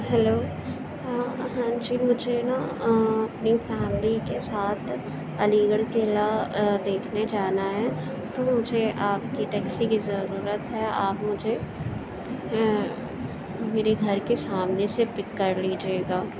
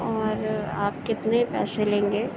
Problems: constant background noise, low volume